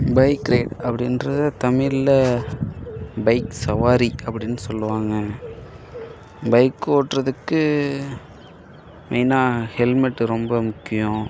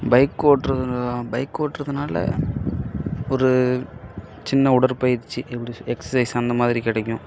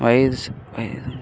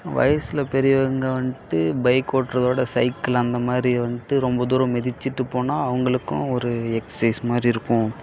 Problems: constant background noise